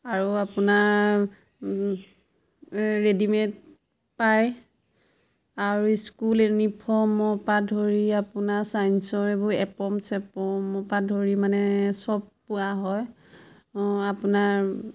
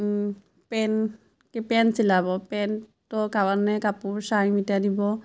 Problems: constant background noise, background conversations at intervals